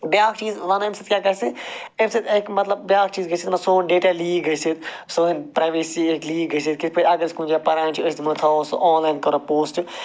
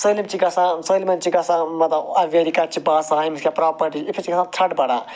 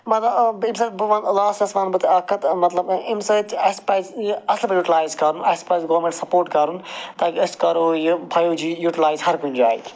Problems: constant background noise